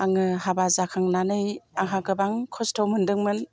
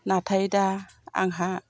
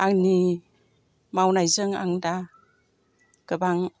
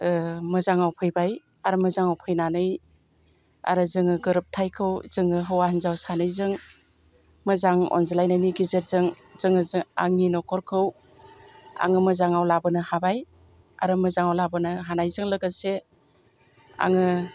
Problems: constant background noise